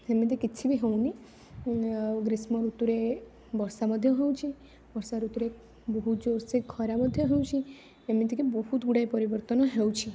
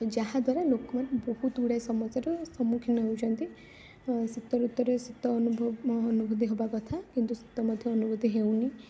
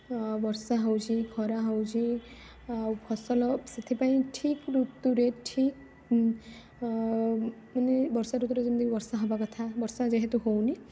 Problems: none marked